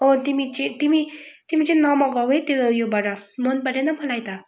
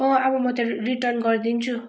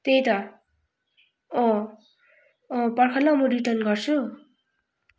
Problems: background sounds at intervals